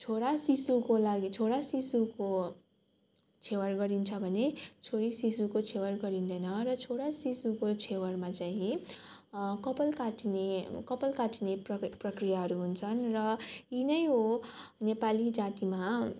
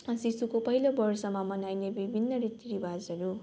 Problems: none marked